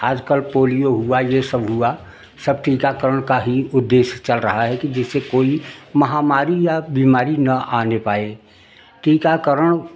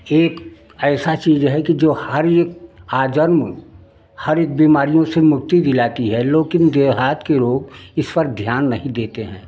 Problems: none marked